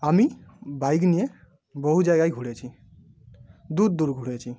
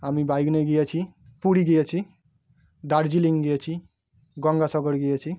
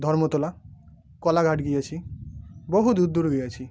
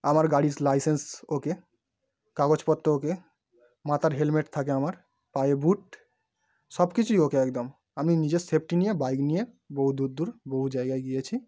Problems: none marked